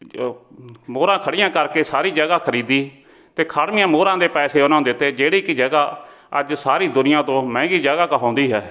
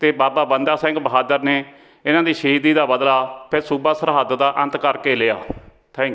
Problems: none marked